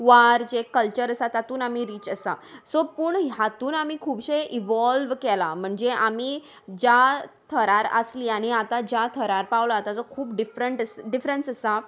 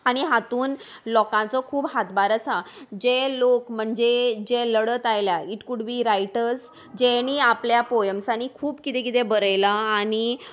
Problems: none marked